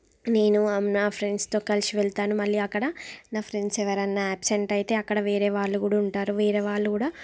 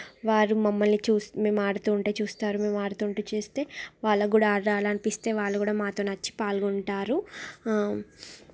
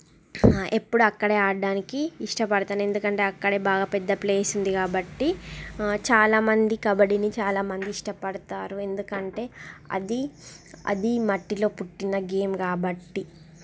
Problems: background sounds at intervals